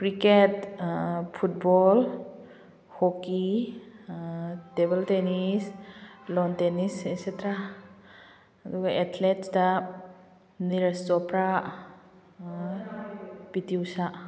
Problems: background sounds at intervals